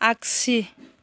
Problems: none marked